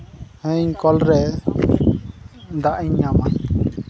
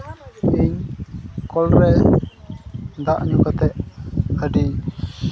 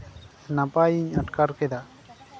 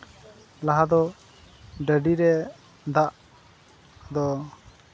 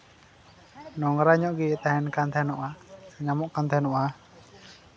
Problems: constant background noise, continuous background conversations